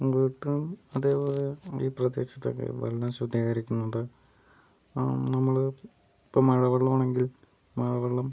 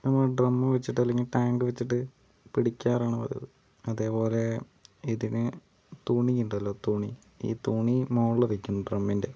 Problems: background sounds at intervals